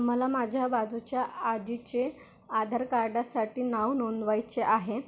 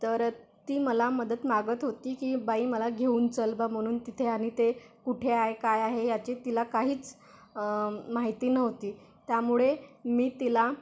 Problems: constant background noise